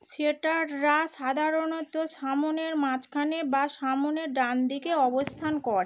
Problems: background sounds at intervals